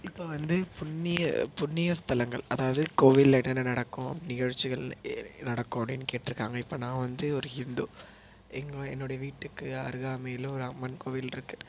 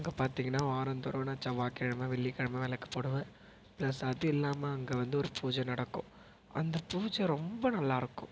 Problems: none marked